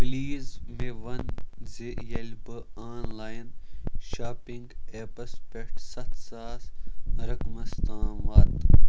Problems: none marked